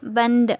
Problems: none marked